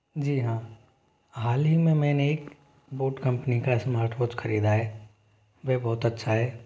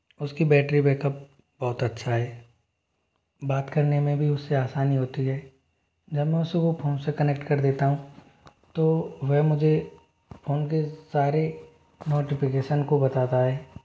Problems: background sounds at intervals